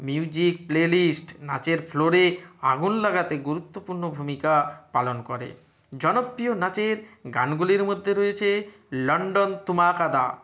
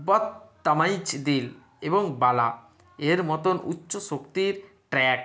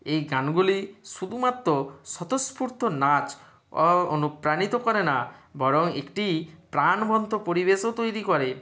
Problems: none marked